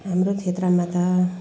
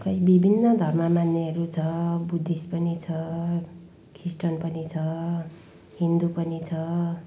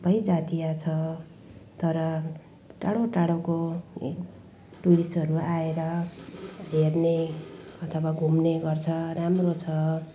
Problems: background sounds at intervals